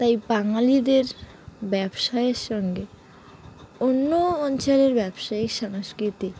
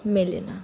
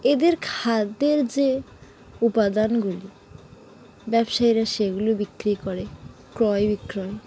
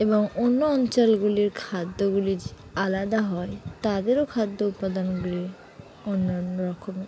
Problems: constant background noise, continuous background conversations